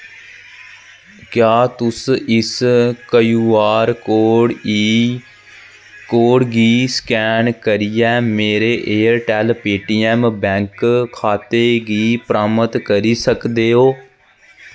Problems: background sounds at intervals